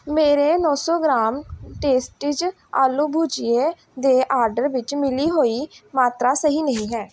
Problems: background sounds at intervals